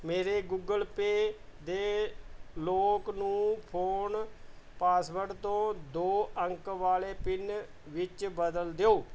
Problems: background sounds at intervals